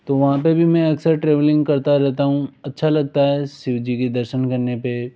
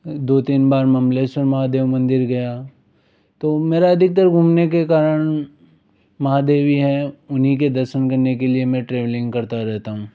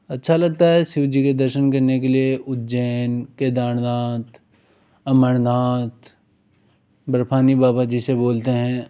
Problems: background sounds at intervals